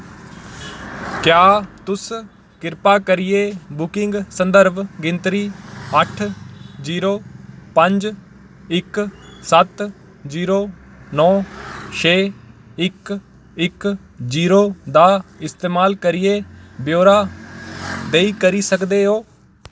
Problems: none marked